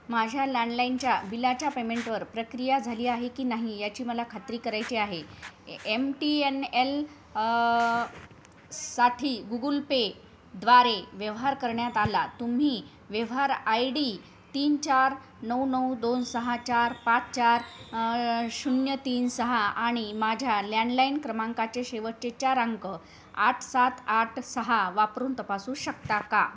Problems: constant background noise, background conversations at intervals